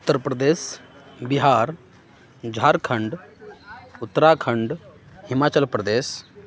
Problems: none marked